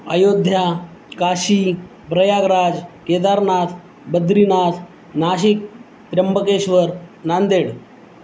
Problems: constant background noise